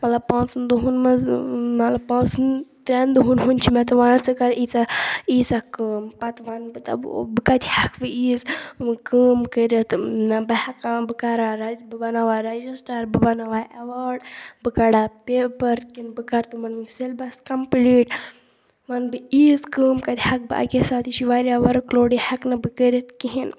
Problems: background sounds at intervals